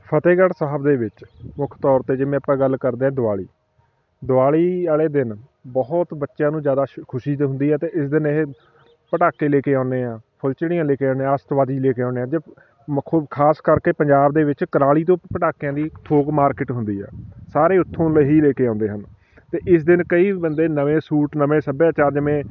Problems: background sounds at intervals, continuous background conversations